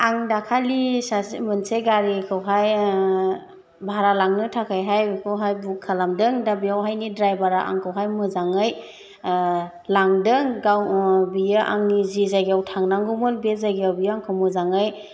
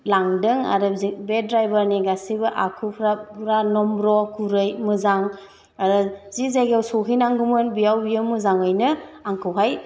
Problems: none marked